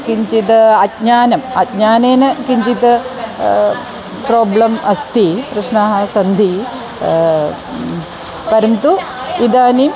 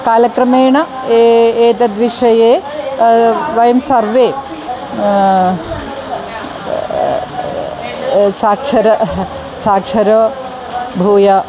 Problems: constant background noise, continuous background conversations